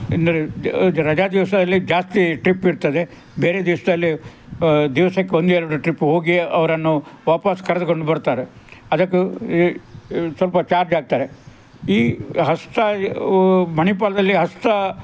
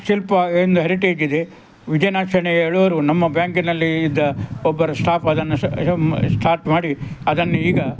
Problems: background sounds at intervals, background conversations at intervals